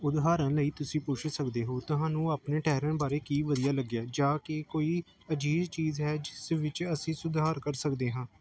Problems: none marked